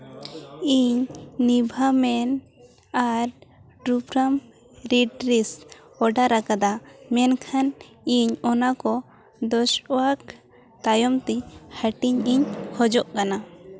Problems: constant background noise, background conversations at intervals